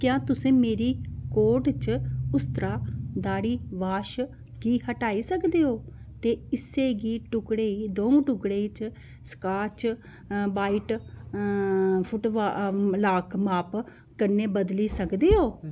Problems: background sounds at intervals